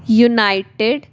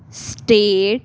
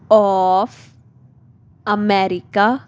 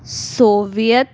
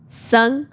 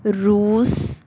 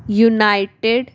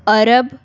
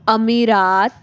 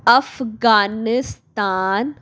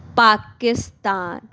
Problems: none marked